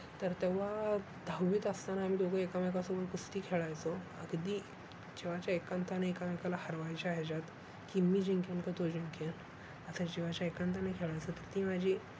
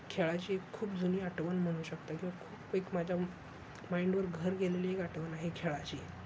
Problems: constant background noise